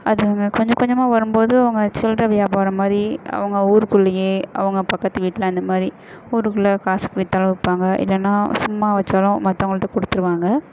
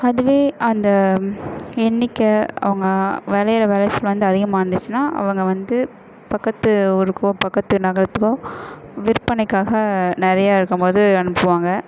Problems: constant background noise, echo